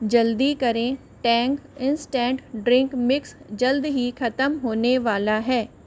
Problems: constant background noise